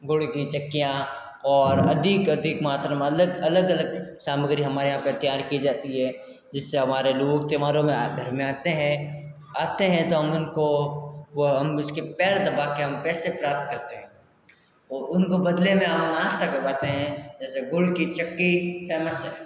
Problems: constant background noise, echo